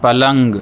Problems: none marked